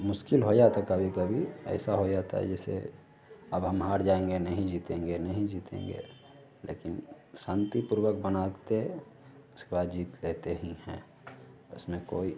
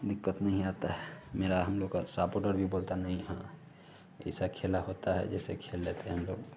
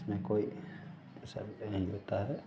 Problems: none marked